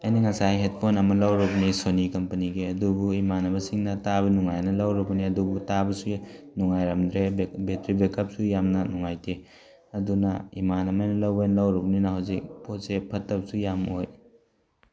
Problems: background sounds at intervals